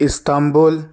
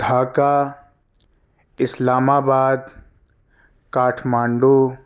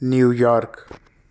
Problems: none marked